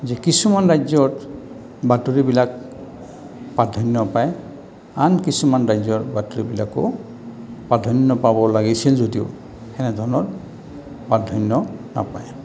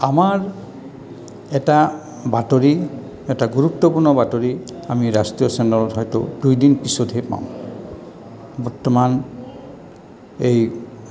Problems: background sounds at intervals